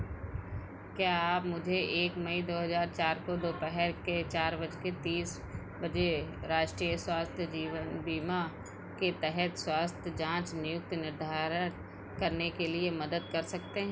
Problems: constant background noise